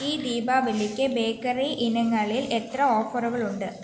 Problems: background sounds at intervals